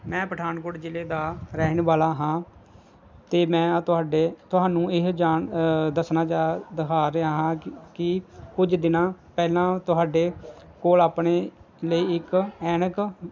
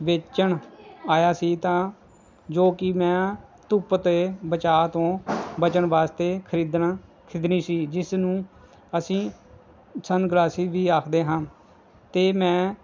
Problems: background sounds at intervals